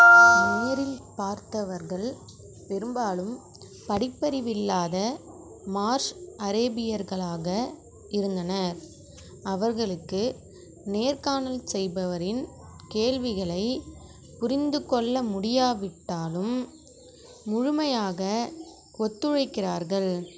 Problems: background sounds at intervals